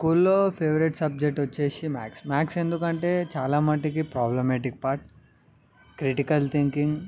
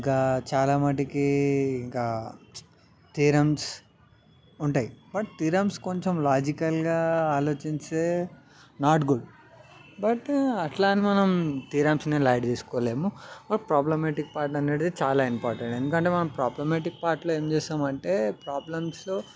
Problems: none marked